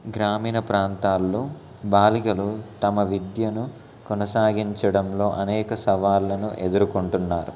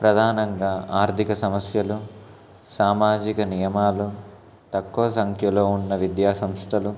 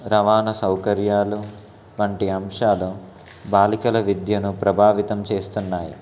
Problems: constant background noise, background conversations at intervals